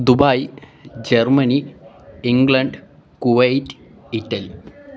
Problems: background sounds at intervals